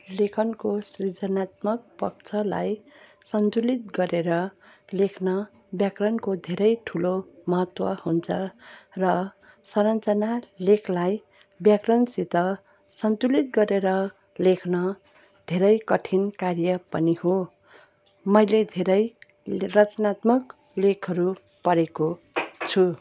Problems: constant background noise